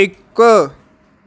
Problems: none marked